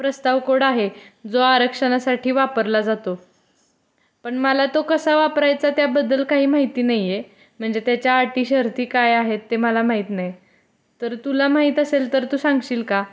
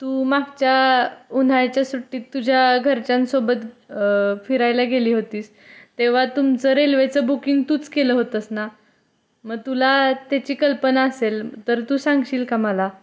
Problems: none marked